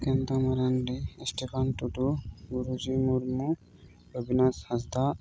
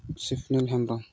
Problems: background sounds at intervals